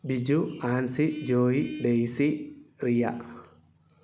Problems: background sounds at intervals